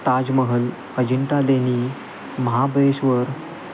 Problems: constant background noise